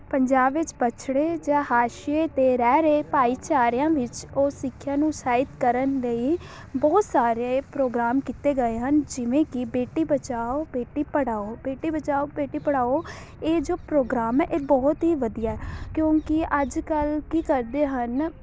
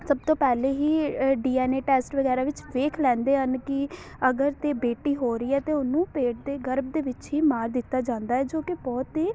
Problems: background sounds at intervals